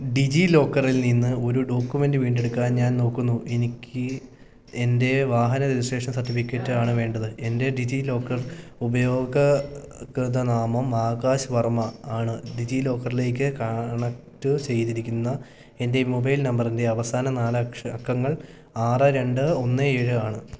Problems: none marked